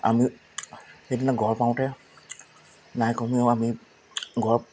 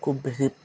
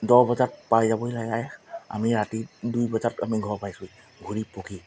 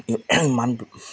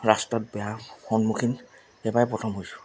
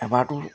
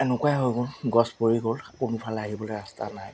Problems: constant background noise